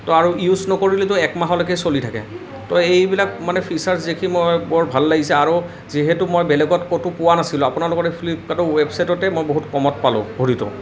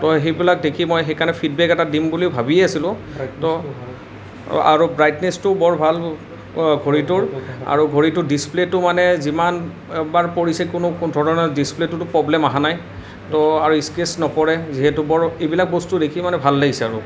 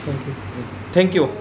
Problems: none marked